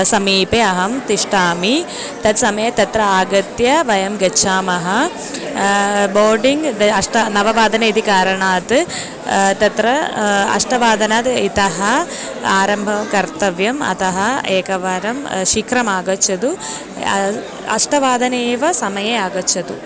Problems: background conversations at intervals